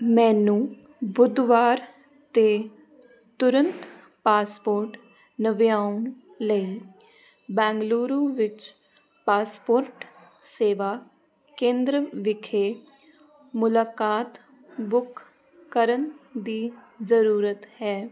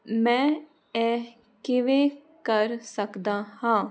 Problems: none marked